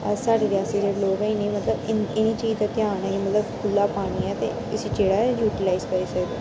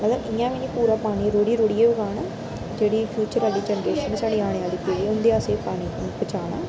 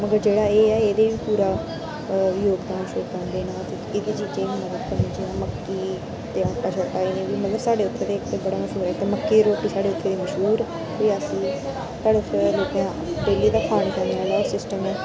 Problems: constant background noise